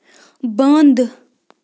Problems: none marked